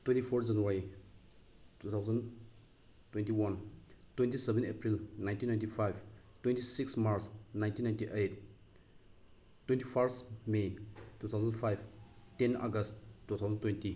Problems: background sounds at intervals